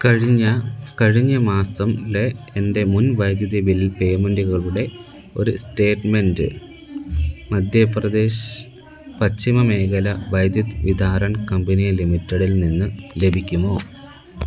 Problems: constant background noise